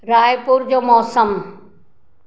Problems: none marked